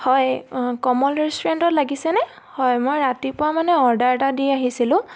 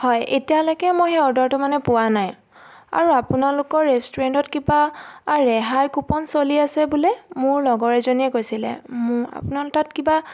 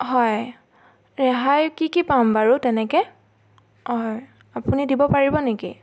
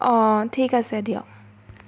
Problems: none marked